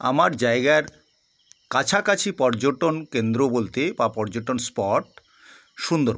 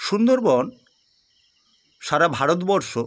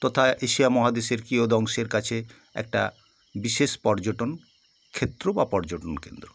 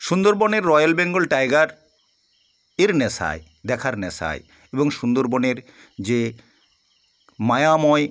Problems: constant background noise